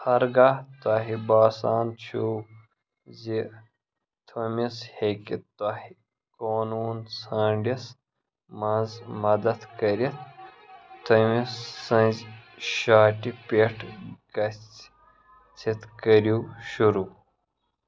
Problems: background sounds at intervals